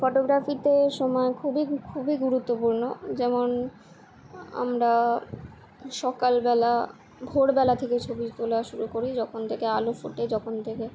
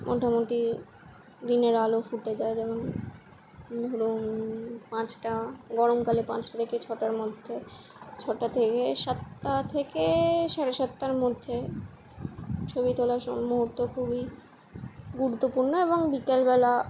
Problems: constant background noise